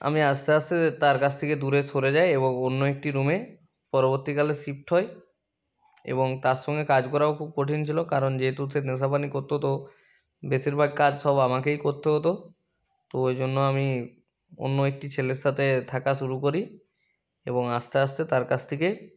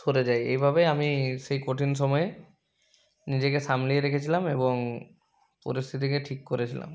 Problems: background sounds at intervals